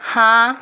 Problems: constant background noise